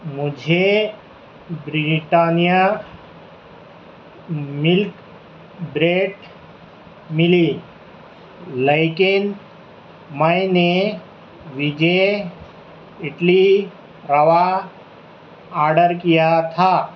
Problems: constant background noise